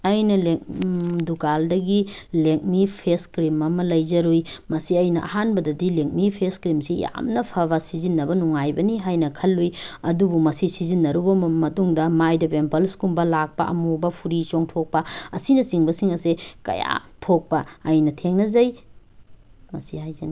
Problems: none marked